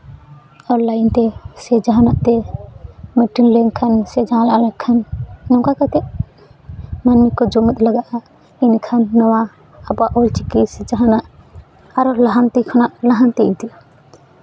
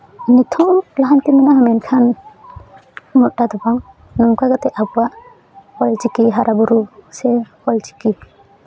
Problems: background sounds at intervals, continuous background conversations